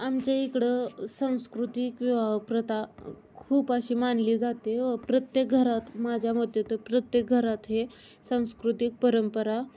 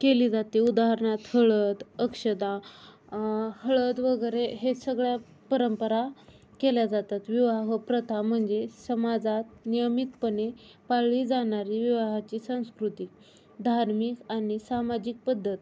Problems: none marked